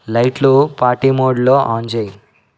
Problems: none marked